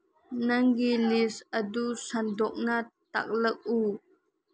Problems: low volume